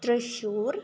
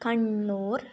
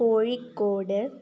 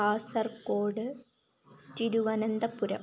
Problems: none marked